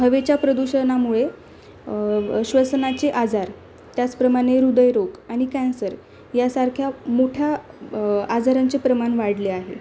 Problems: none marked